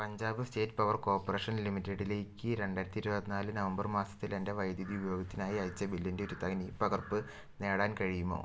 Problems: low volume